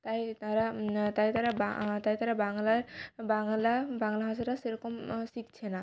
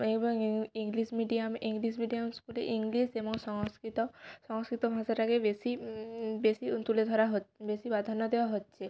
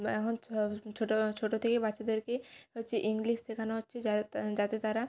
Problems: none marked